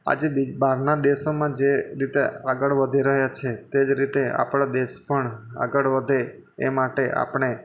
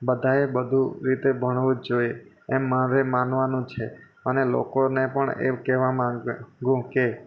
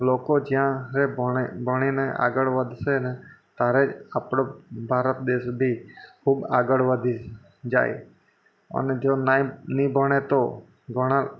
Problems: constant background noise